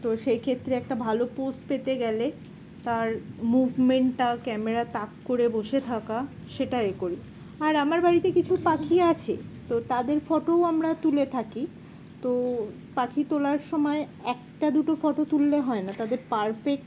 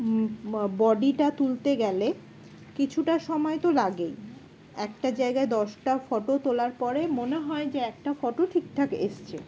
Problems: constant background noise